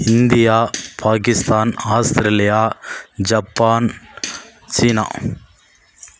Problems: background sounds at intervals